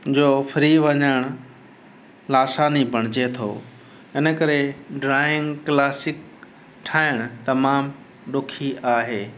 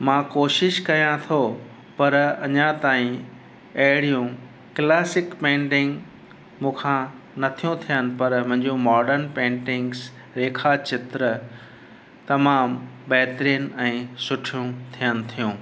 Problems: constant background noise, echo